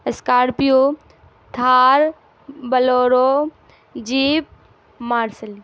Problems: constant background noise